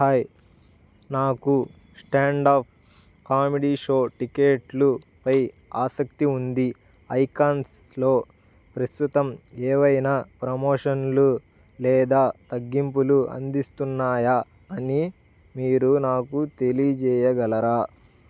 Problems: none marked